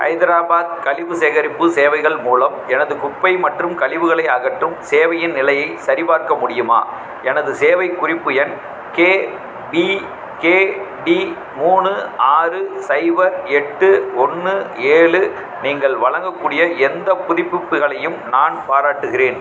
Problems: background sounds at intervals, background conversations at intervals